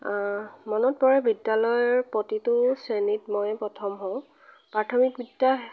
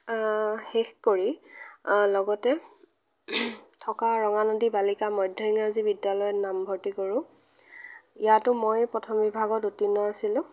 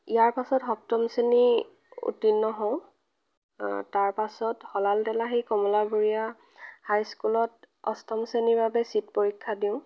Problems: none marked